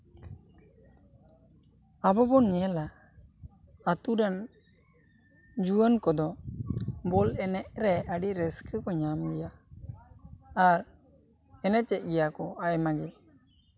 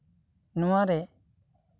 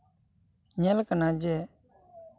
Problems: none marked